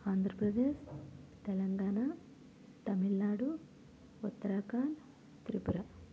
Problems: constant background noise, low volume